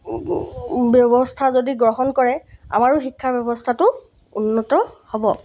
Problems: background sounds at intervals